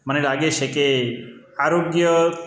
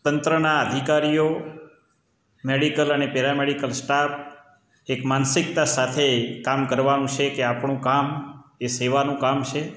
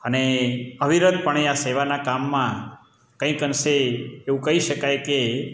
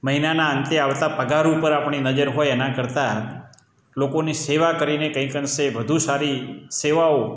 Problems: none marked